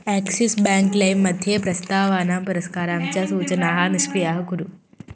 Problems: constant background noise, continuous background conversations